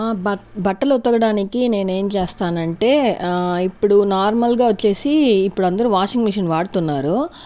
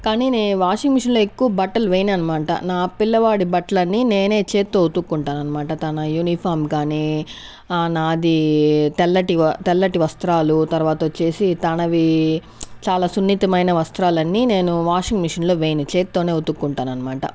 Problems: none marked